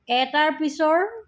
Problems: none marked